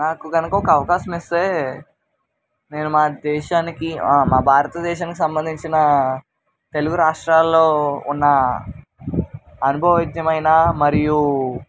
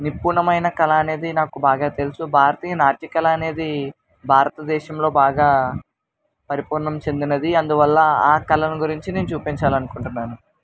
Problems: constant background noise